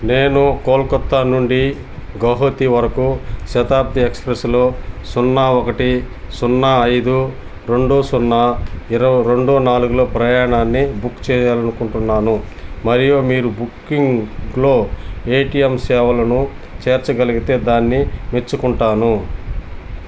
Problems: constant background noise